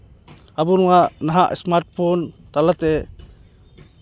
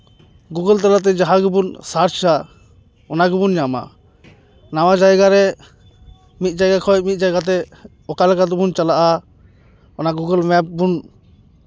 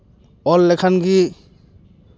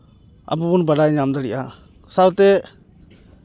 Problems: none marked